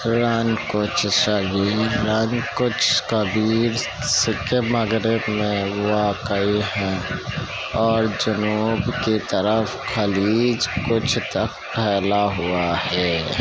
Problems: constant background noise